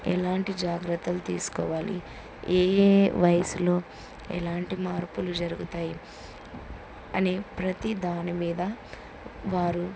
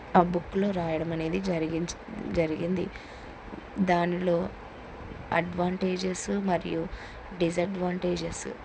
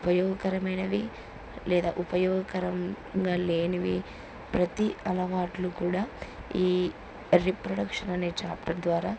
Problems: constant background noise